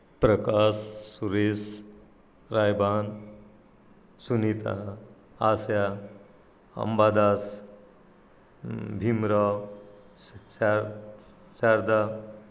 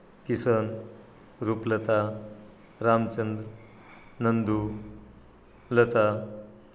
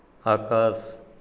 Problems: none marked